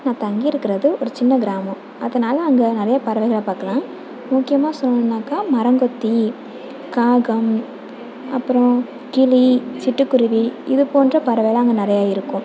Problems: background sounds at intervals